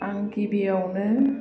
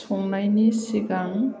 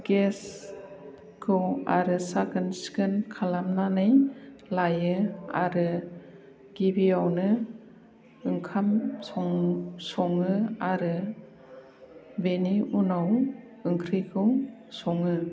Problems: none marked